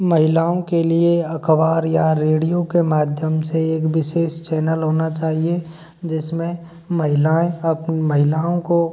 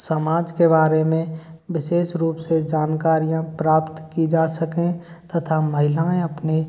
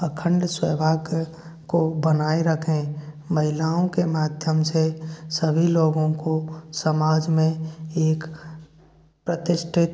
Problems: constant background noise